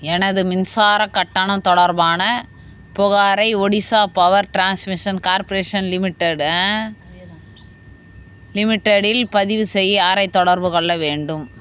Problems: background sounds at intervals